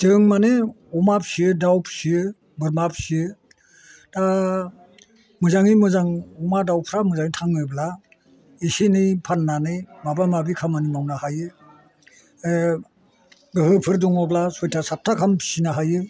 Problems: constant background noise